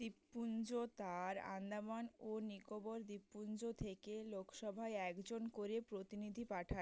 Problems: none marked